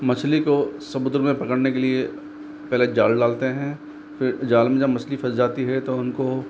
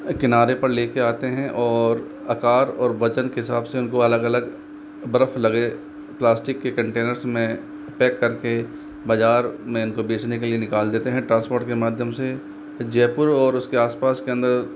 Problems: none marked